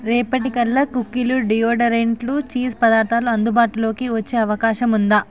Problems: background conversations at intervals